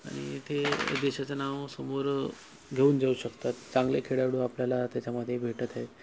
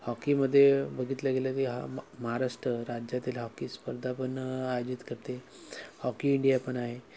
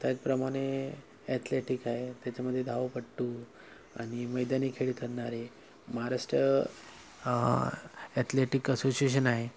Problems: background sounds at intervals